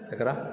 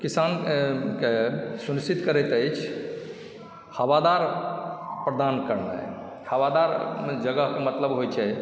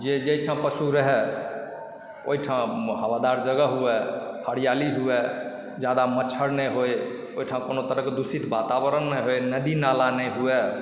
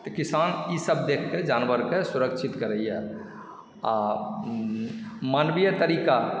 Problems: background sounds at intervals